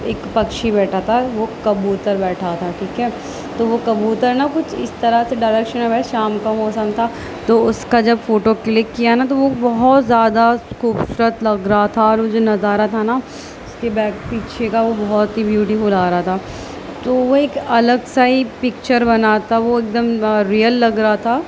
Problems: constant background noise